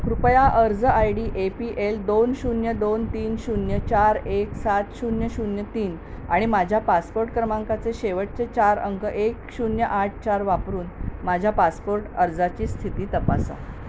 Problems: none marked